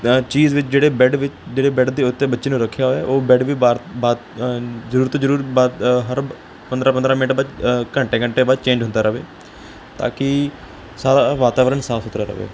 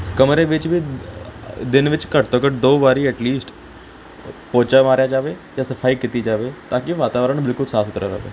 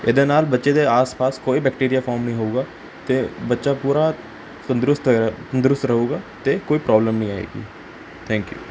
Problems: none marked